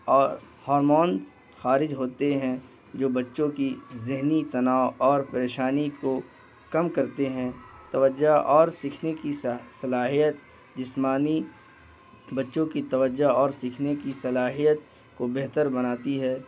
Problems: constant background noise